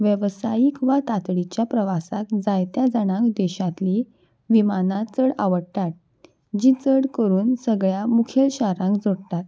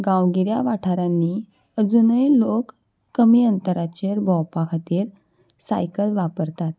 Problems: none marked